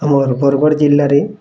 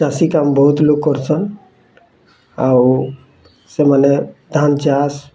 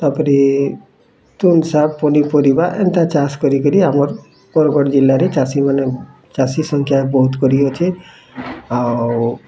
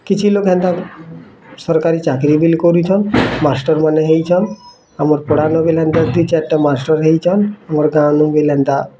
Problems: constant background noise, continuous background conversations